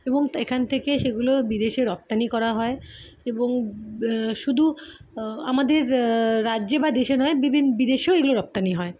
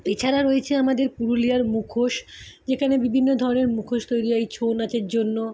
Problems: constant background noise